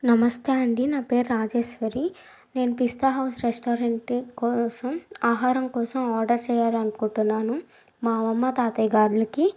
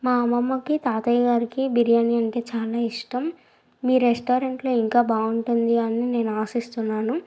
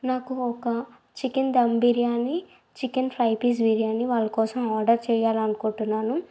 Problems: none marked